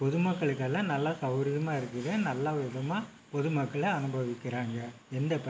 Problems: constant background noise